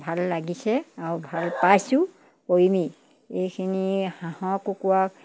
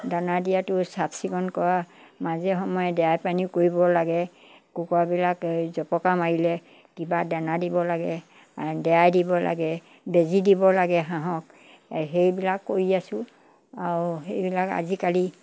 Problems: background sounds at intervals